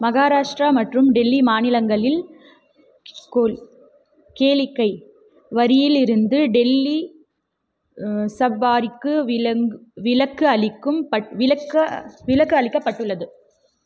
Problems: background sounds at intervals